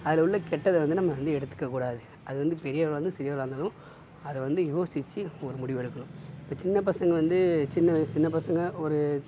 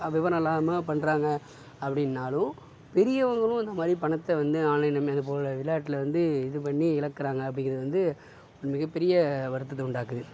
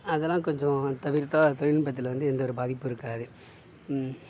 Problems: background sounds at intervals